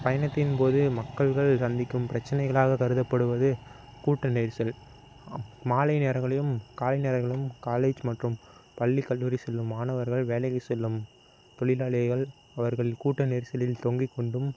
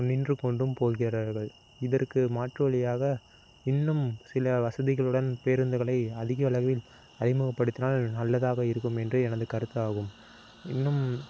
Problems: constant background noise